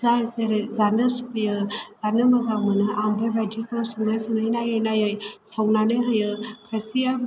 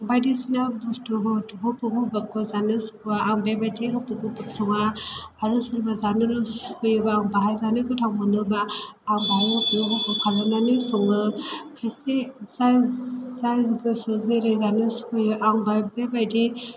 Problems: low volume